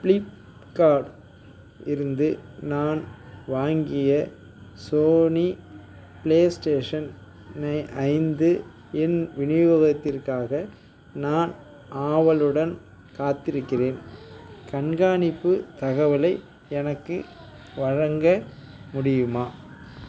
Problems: background sounds at intervals, background conversations at intervals